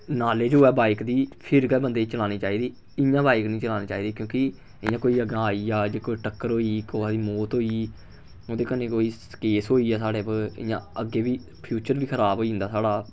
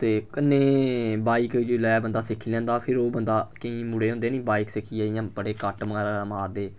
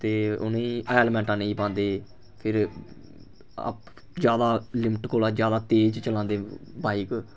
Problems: none marked